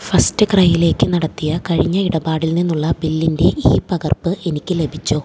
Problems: low volume